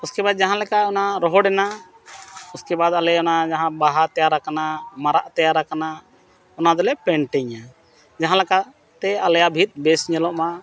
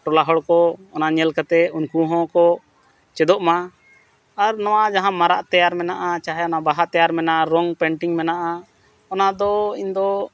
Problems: none marked